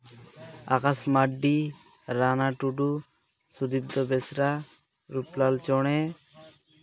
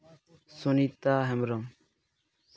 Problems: none marked